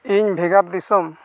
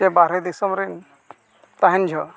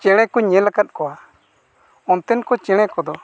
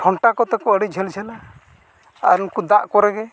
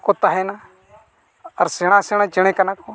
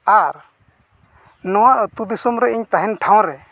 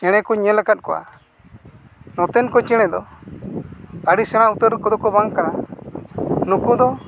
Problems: none marked